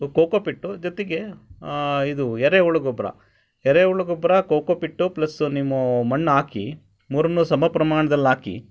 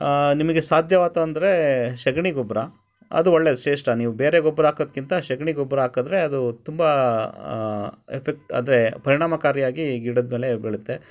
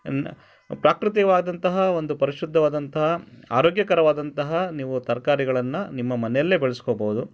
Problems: none marked